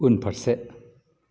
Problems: low volume